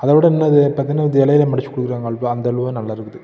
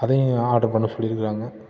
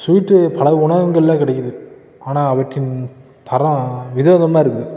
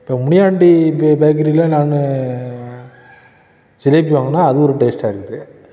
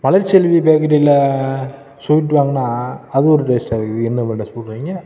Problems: background conversations at intervals